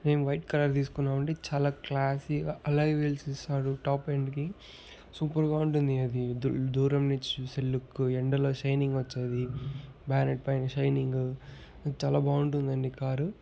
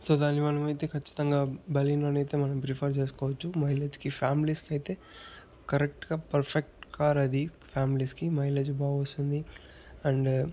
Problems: background sounds at intervals, background conversations at intervals